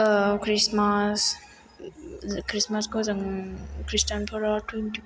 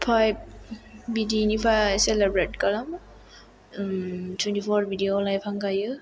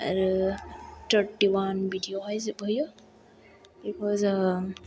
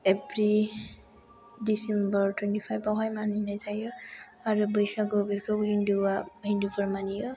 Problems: low volume